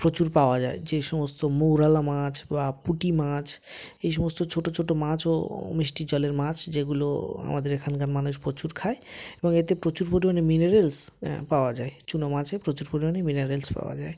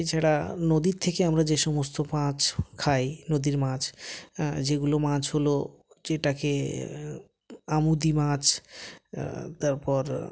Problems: none marked